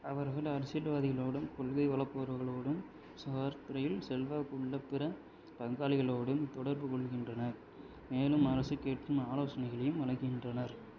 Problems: low volume